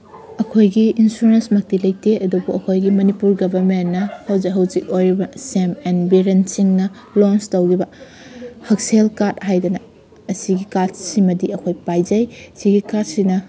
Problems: constant background noise